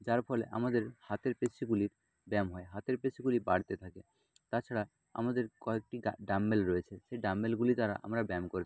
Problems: low volume